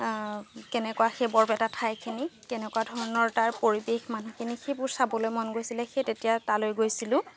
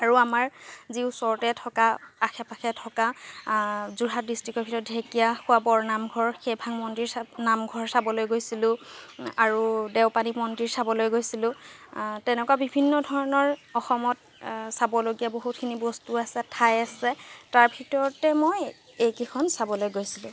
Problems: background sounds at intervals